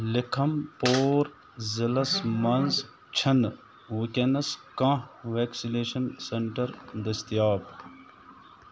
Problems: constant background noise